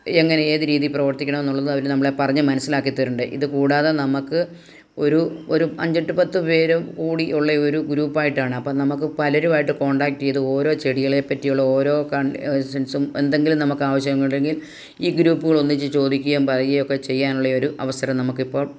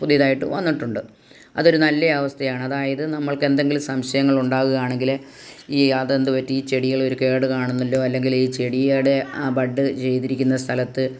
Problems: none marked